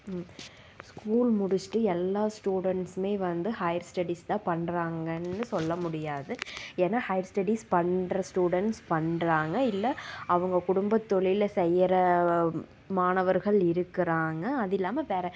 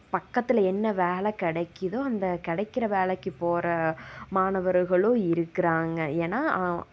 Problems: constant background noise